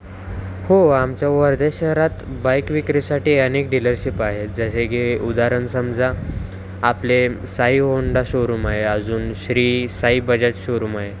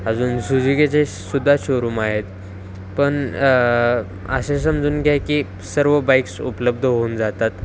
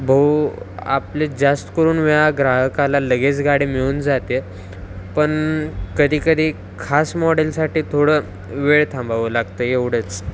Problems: constant background noise, background conversations at intervals